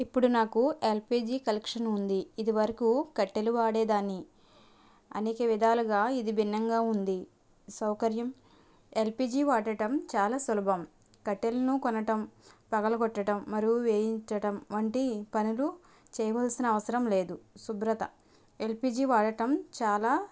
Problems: none marked